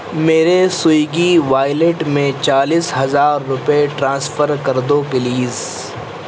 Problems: constant background noise